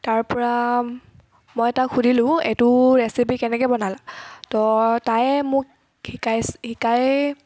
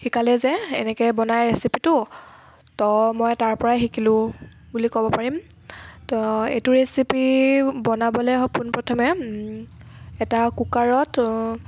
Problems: none marked